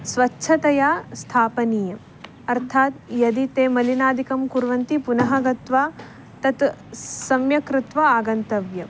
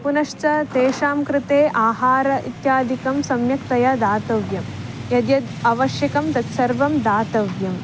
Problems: none marked